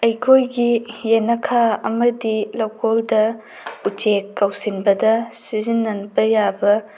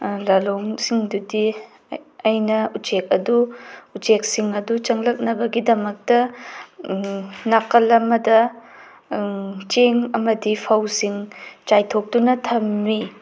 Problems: background sounds at intervals